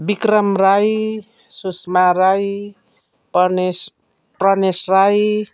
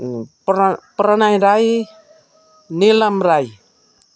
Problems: none marked